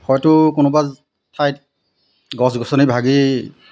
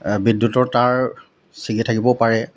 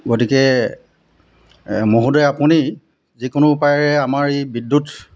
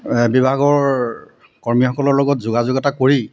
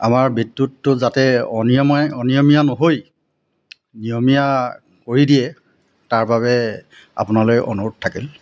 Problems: constant background noise